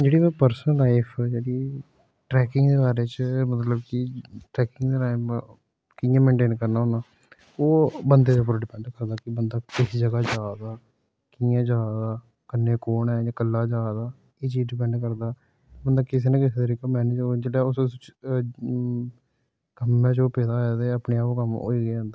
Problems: background sounds at intervals